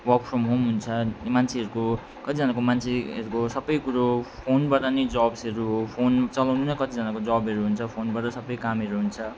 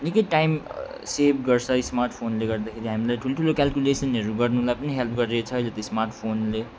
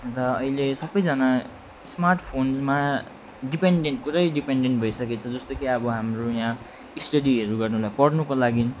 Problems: none marked